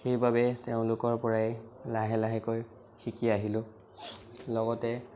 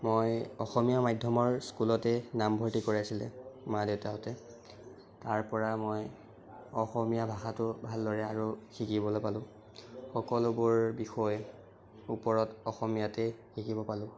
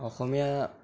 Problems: background sounds at intervals, background conversations at intervals